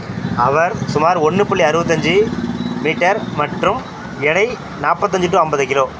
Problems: background conversations at intervals